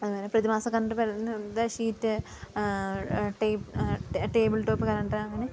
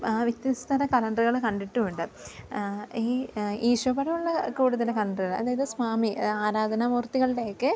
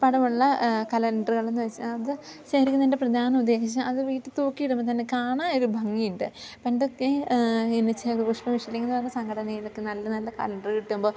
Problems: low volume